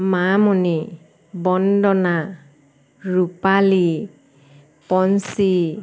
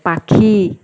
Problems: background sounds at intervals